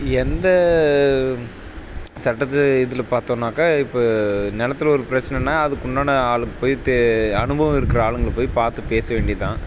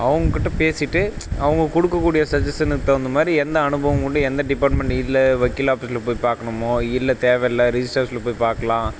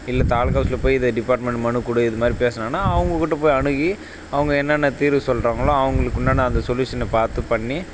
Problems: background sounds at intervals